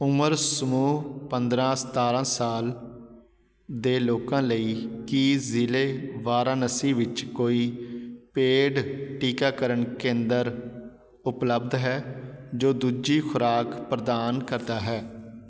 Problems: background sounds at intervals